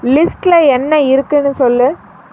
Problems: constant background noise